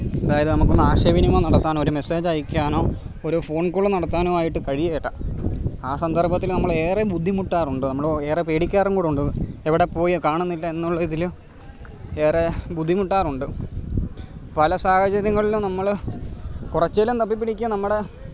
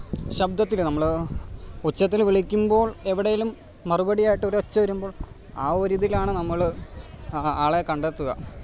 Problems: constant background noise